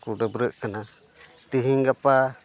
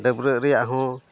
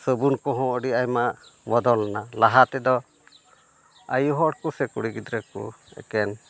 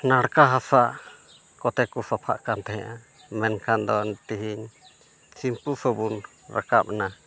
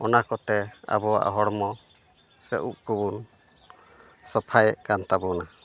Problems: none marked